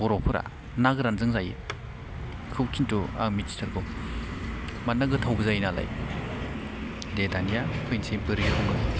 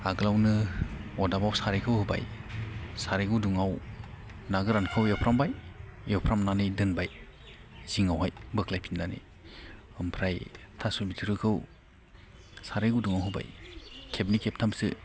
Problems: none marked